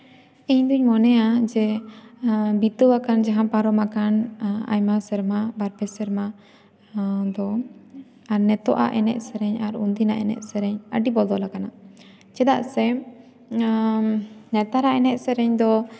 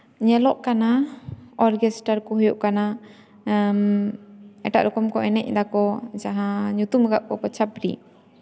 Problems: constant background noise, echo